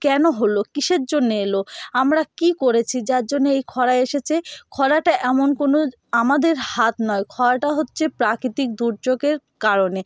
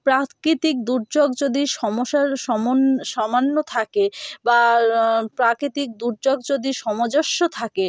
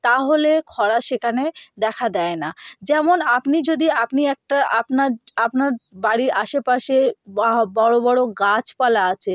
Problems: none marked